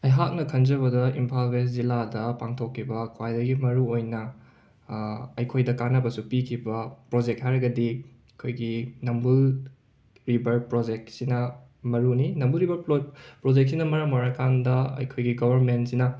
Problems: background sounds at intervals